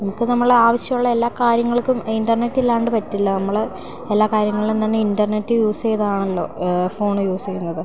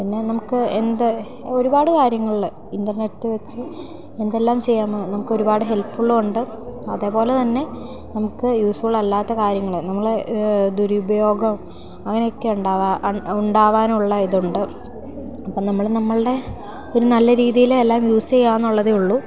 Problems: none marked